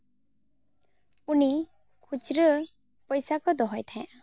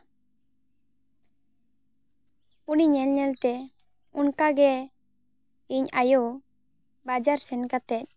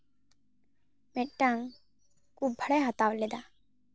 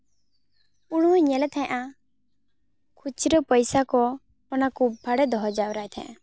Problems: none marked